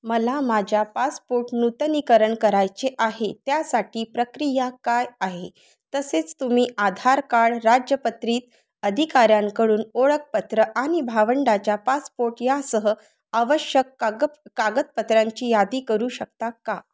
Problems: constant background noise, background conversations at intervals